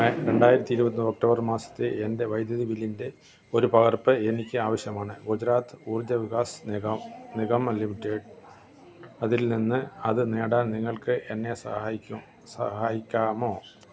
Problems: background sounds at intervals